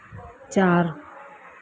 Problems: low volume